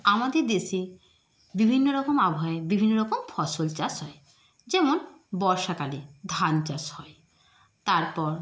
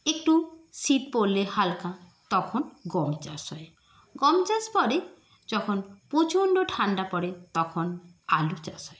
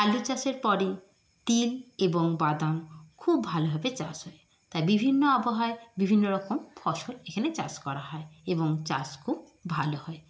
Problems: none marked